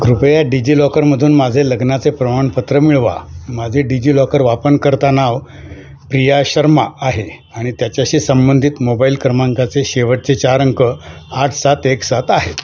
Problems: none marked